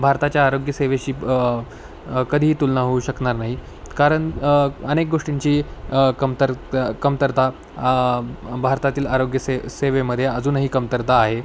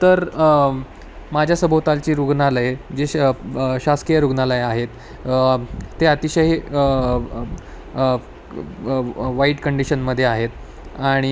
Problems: none marked